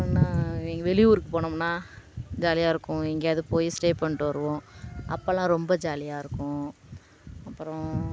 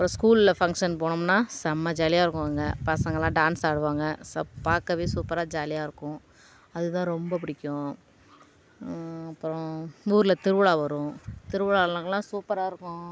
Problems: constant background noise